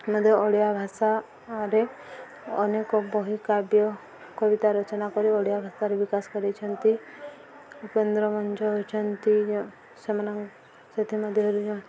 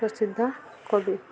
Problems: constant background noise, continuous background conversations